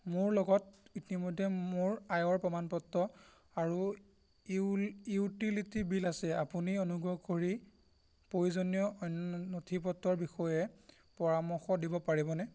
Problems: constant background noise